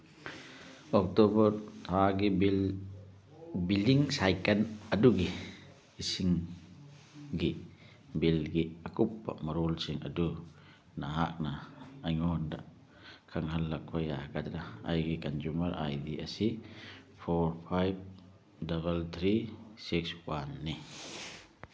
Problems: none marked